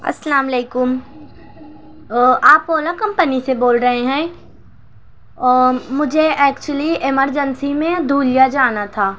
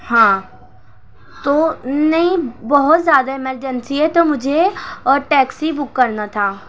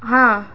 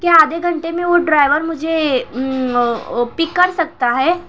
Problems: constant background noise